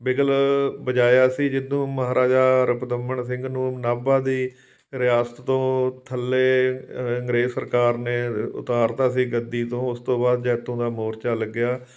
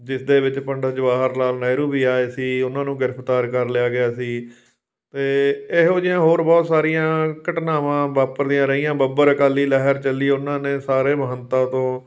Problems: background sounds at intervals